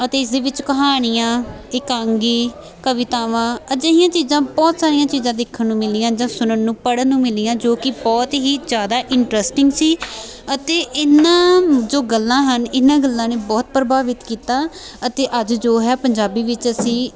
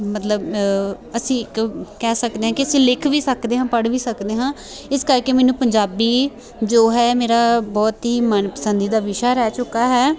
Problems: continuous background conversations